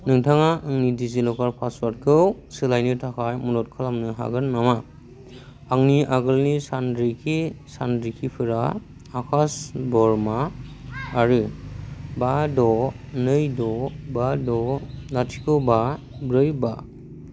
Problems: none marked